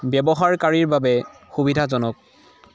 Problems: none marked